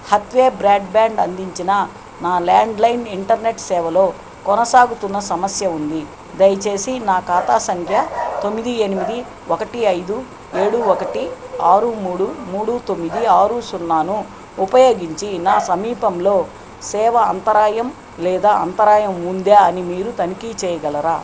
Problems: constant background noise, background conversations at intervals